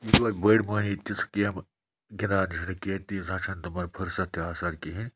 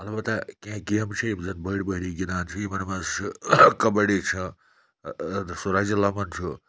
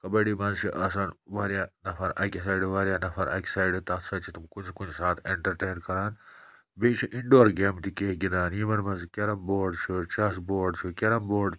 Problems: none marked